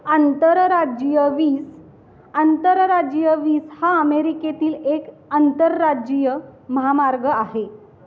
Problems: none marked